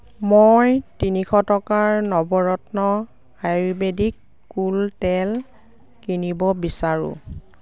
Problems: none marked